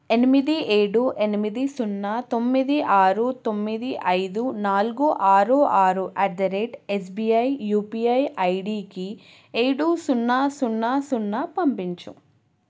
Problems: none marked